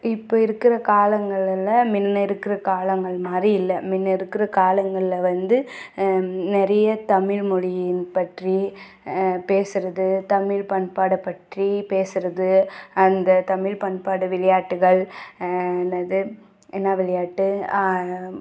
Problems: none marked